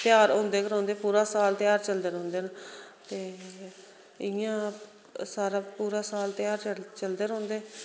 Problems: none marked